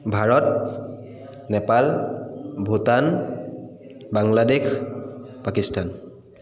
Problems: echo